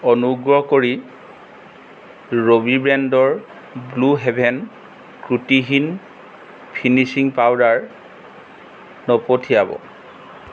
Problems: constant background noise